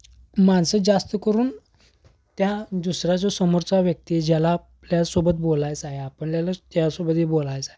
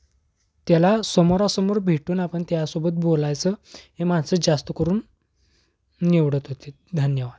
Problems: background sounds at intervals